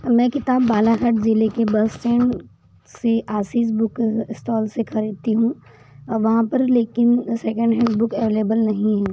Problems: constant background noise